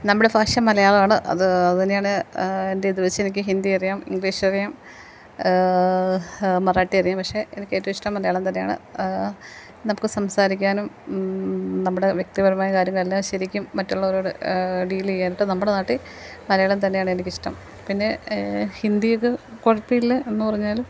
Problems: none marked